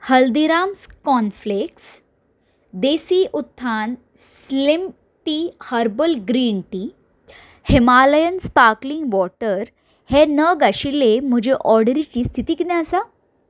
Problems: background sounds at intervals